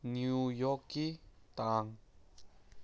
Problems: low volume